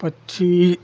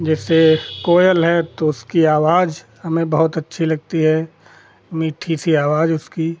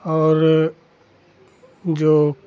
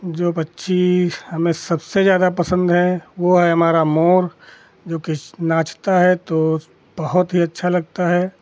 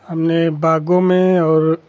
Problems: constant background noise